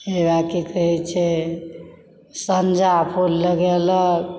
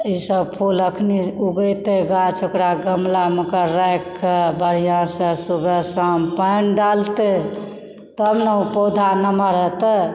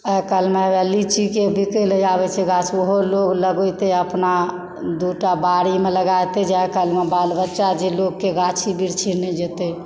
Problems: background sounds at intervals